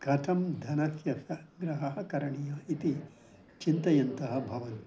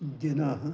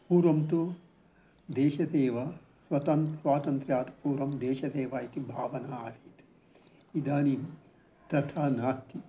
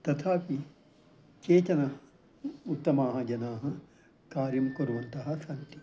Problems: background conversations at intervals